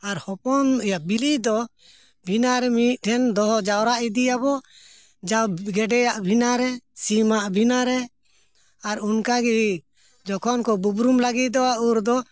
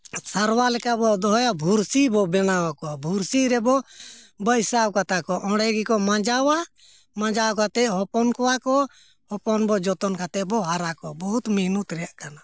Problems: none marked